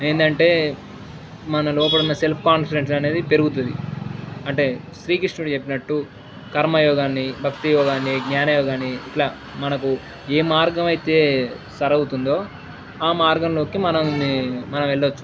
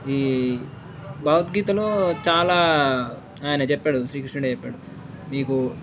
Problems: background sounds at intervals